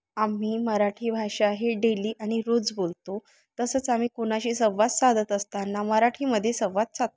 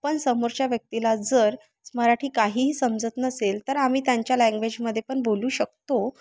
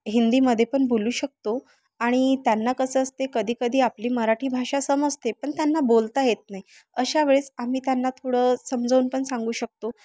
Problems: constant background noise, background conversations at intervals